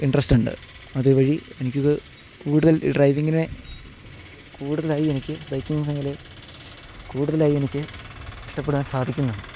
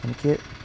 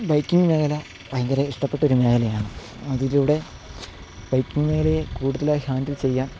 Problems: background sounds at intervals